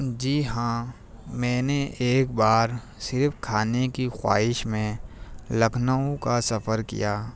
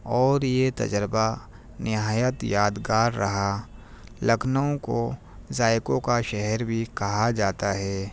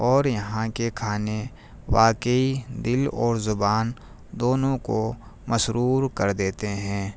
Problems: none marked